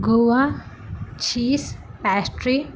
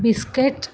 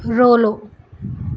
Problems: constant background noise